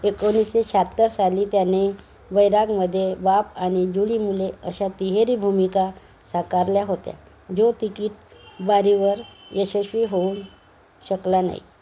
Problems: constant background noise, continuous background conversations